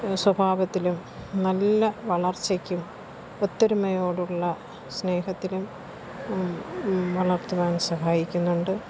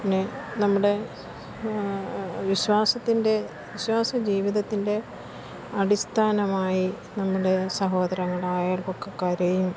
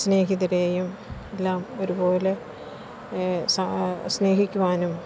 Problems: constant background noise